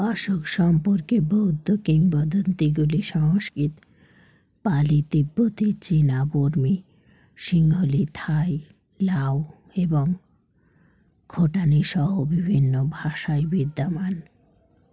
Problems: background conversations at intervals